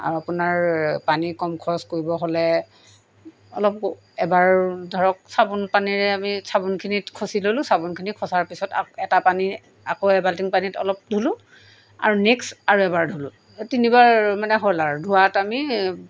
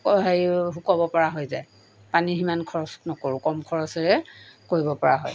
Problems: background sounds at intervals